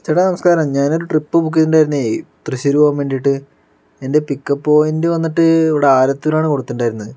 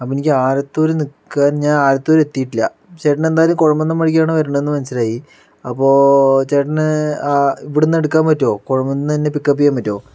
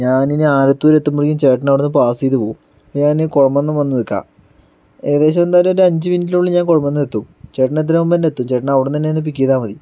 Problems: none marked